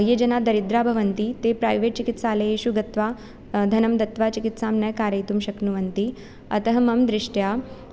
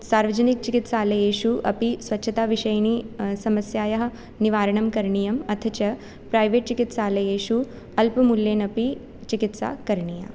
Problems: none marked